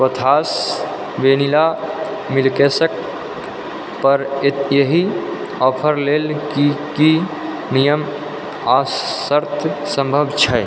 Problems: constant background noise